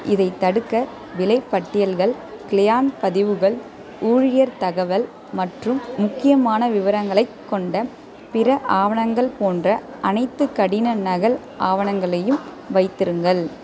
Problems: background conversations at intervals